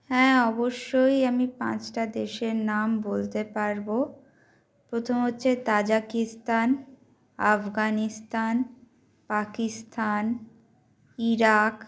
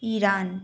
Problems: constant background noise